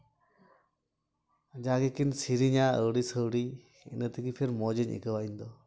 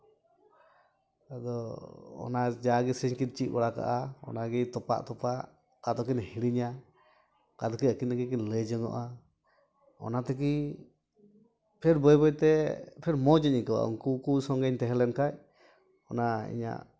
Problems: none marked